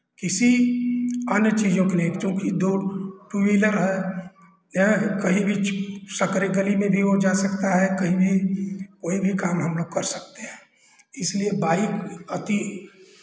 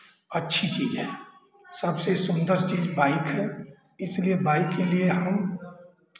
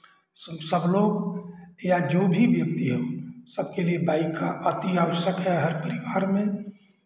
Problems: constant background noise, echo